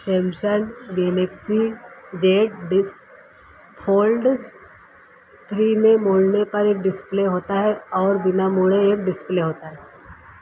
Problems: constant background noise